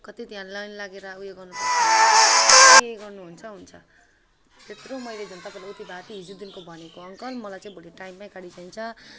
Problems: constant background noise